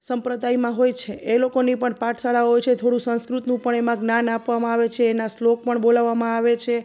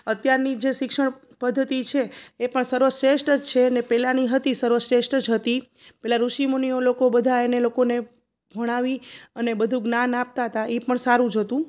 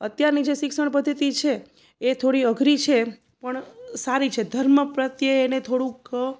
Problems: none marked